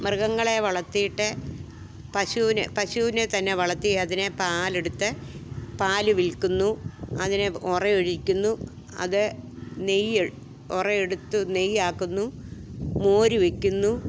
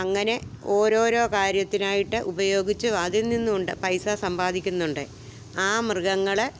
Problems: background sounds at intervals